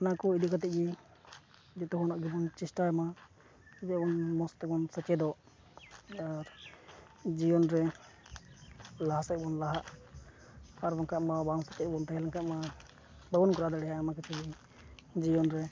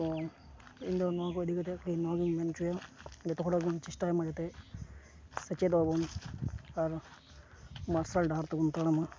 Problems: none marked